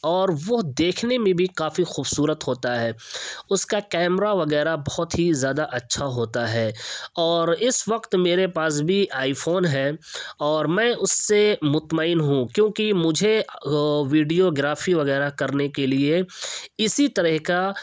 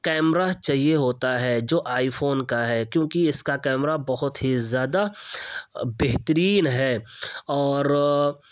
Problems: none marked